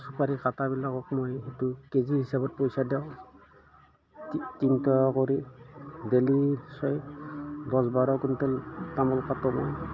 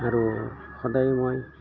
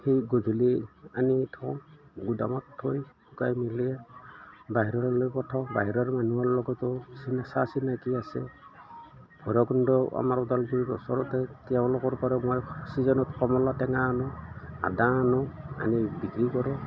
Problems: background sounds at intervals